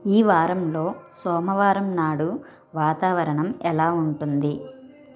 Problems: background sounds at intervals, continuous background conversations